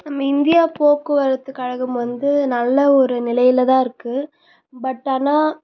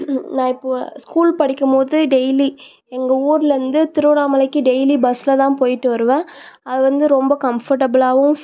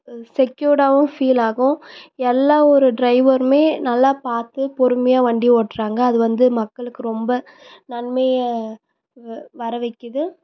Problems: none marked